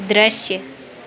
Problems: none marked